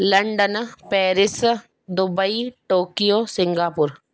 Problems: background sounds at intervals